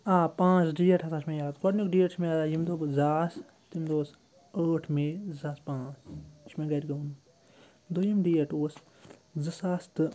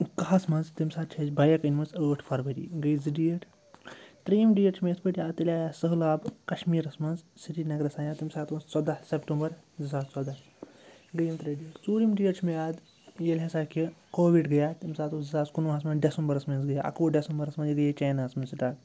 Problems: constant background noise